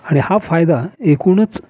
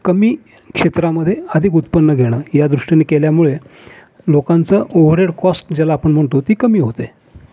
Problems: none marked